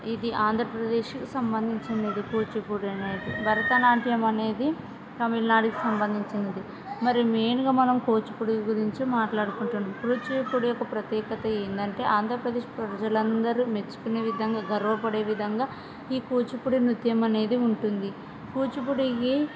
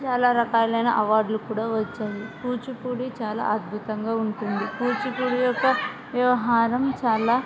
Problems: constant background noise